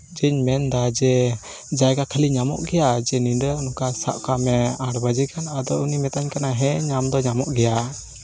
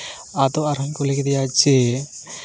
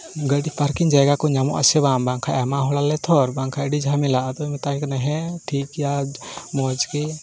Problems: constant background noise, background conversations at intervals